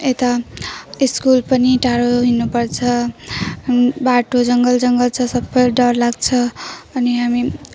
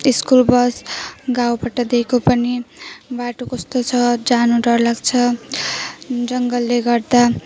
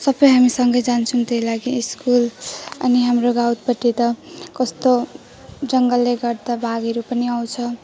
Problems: constant background noise